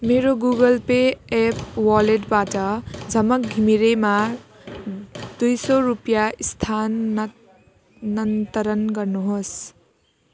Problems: constant background noise